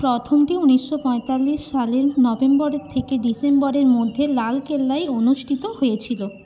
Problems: constant background noise